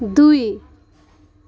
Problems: none marked